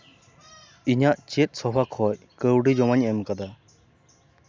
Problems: background sounds at intervals